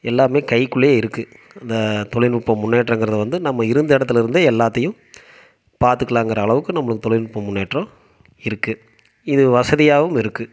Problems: none marked